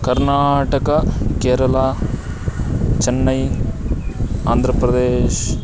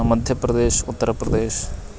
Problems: constant background noise